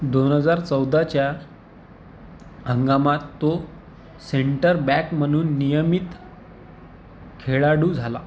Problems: none marked